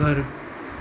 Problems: constant background noise, low volume